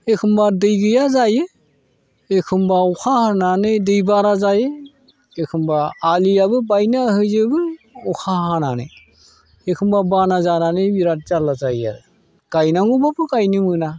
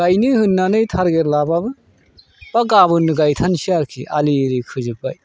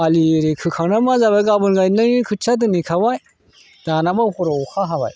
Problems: none marked